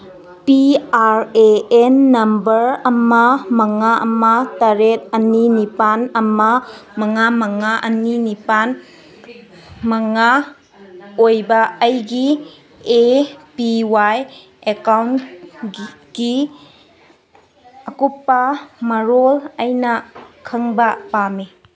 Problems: background conversations at intervals